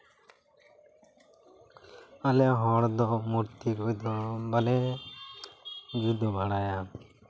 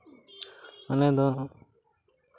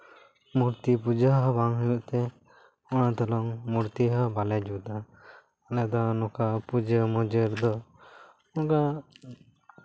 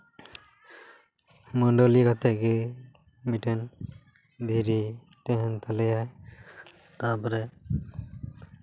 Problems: none marked